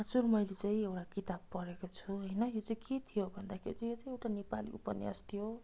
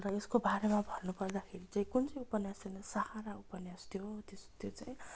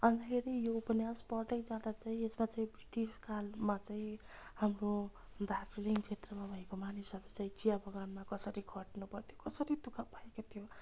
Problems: none marked